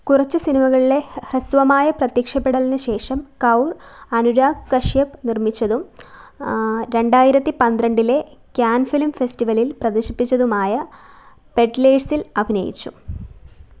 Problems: none marked